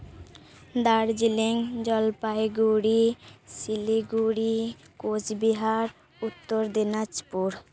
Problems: background conversations at intervals